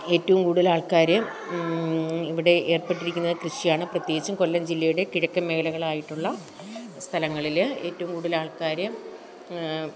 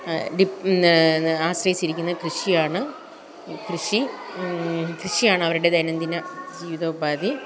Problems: continuous background conversations